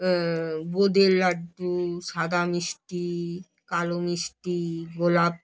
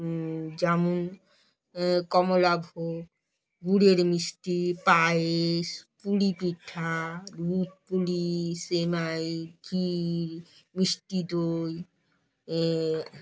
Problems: none marked